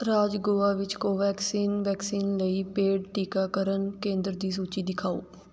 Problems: background sounds at intervals